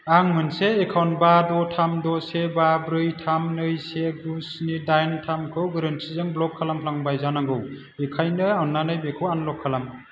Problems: low volume